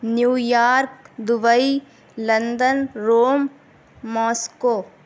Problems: none marked